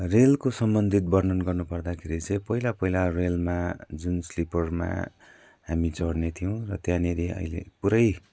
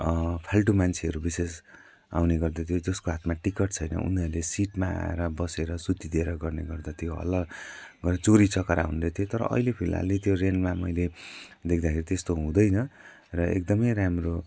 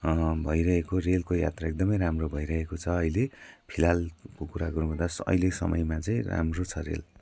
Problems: none marked